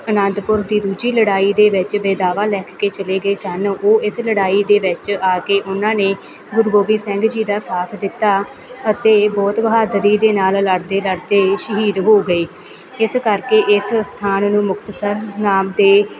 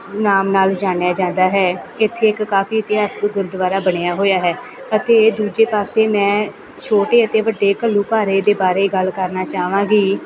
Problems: continuous background conversations